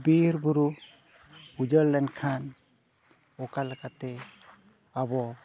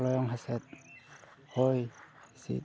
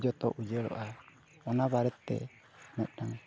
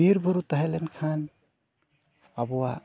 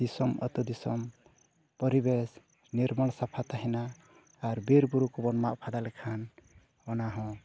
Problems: background sounds at intervals